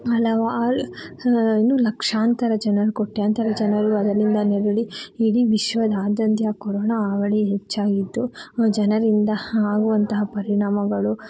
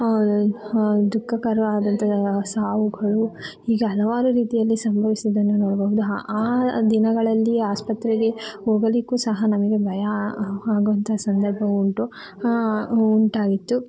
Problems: background sounds at intervals